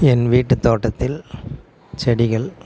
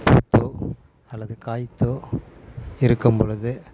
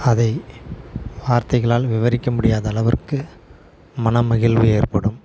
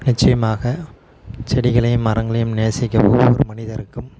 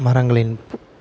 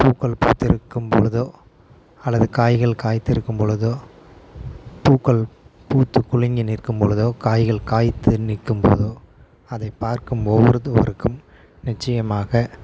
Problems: constant background noise